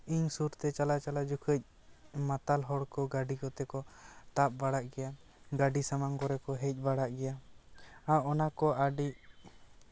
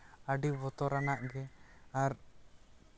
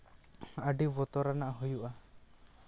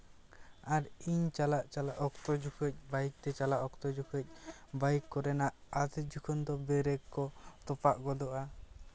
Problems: none marked